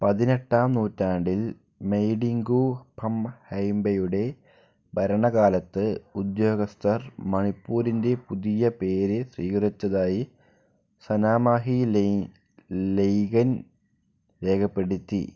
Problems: low volume